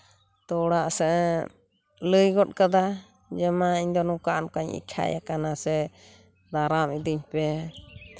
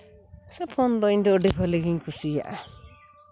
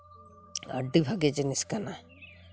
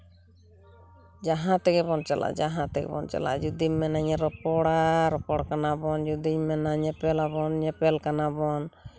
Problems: constant background noise